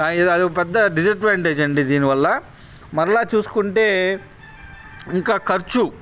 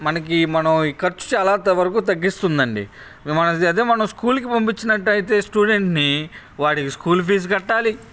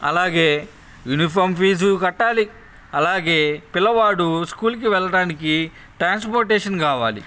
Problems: none marked